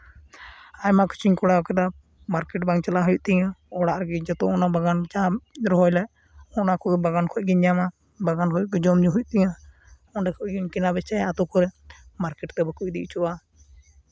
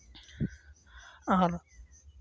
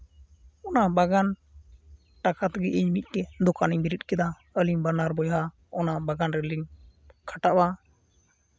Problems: background sounds at intervals